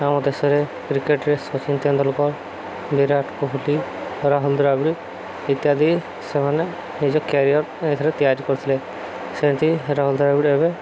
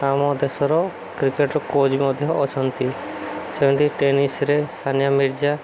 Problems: constant background noise